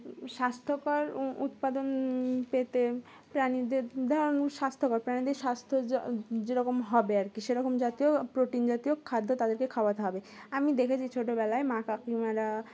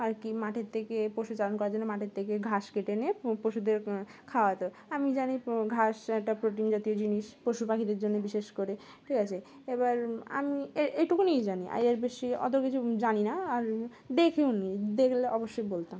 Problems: constant background noise